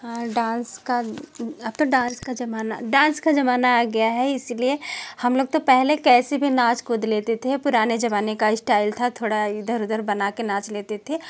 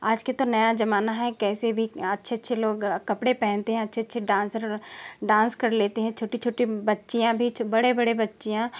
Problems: none marked